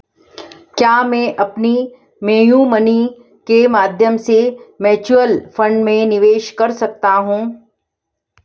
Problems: background sounds at intervals